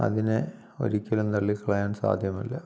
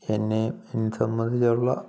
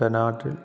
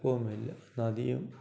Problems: background sounds at intervals